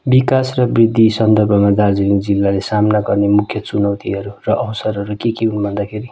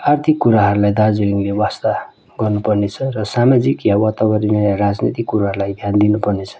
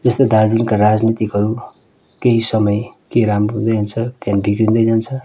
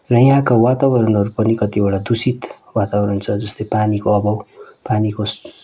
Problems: constant background noise